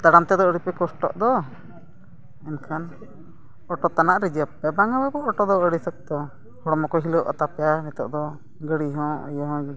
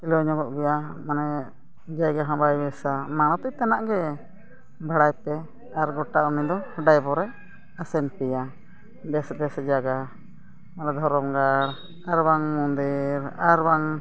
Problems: constant background noise